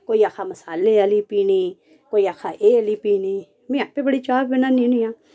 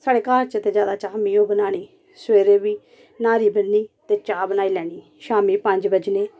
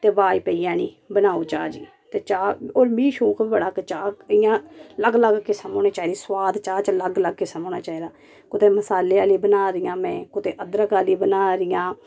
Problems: none marked